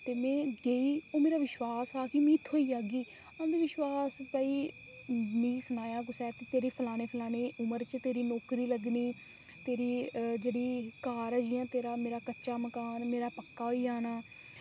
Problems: constant background noise